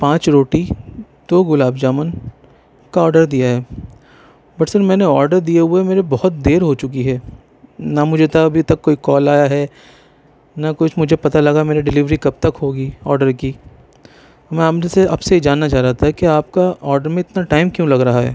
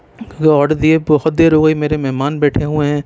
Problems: constant background noise